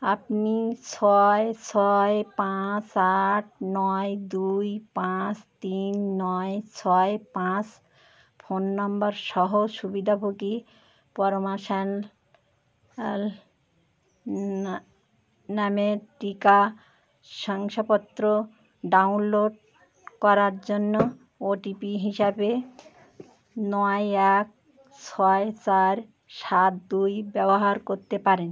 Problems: background sounds at intervals, continuous background conversations